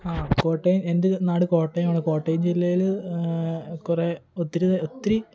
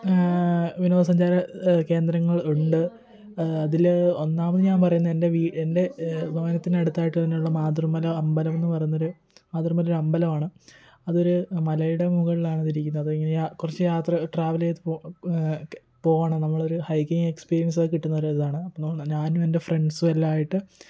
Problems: continuous background conversations, low volume